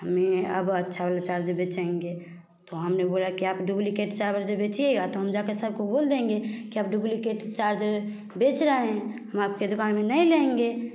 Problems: constant background noise, continuous background conversations